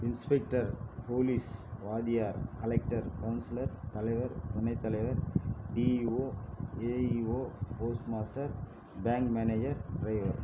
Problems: background sounds at intervals